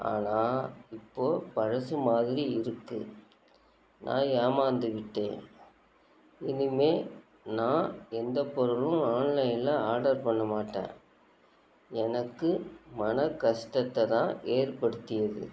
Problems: constant background noise